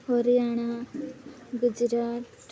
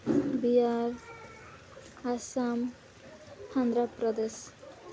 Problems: background sounds at intervals